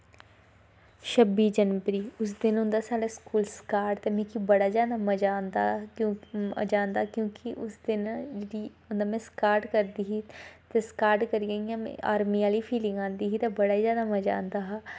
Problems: constant background noise